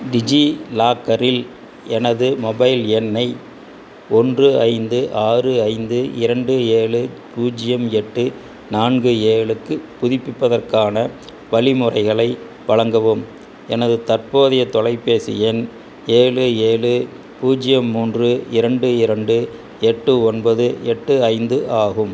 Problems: constant background noise